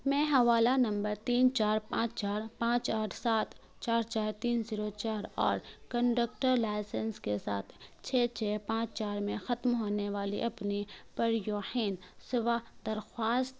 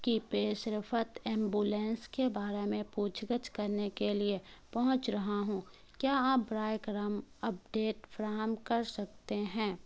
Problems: constant background noise